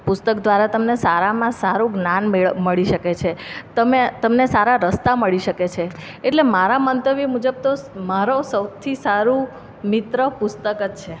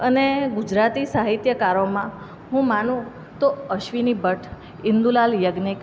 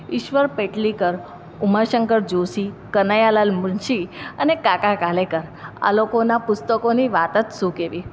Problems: none marked